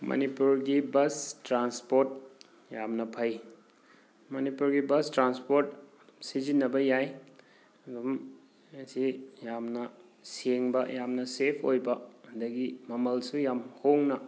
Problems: background sounds at intervals